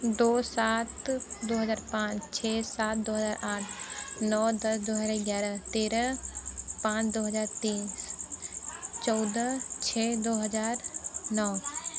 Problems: none marked